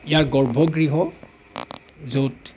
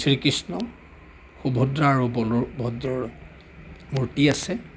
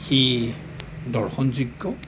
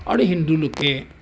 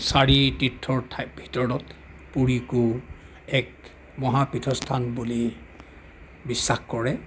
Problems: background sounds at intervals